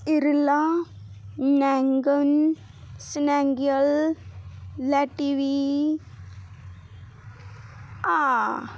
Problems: background sounds at intervals